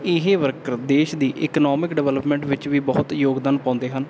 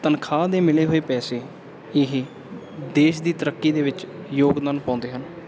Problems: background sounds at intervals